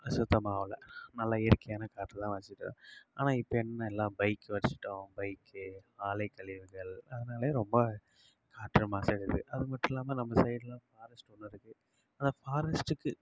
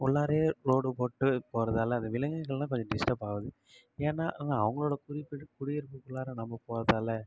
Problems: low volume